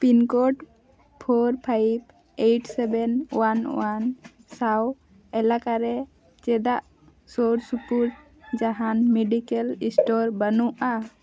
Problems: none marked